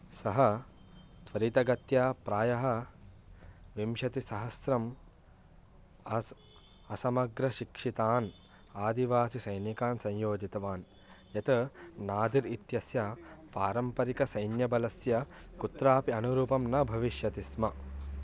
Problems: none marked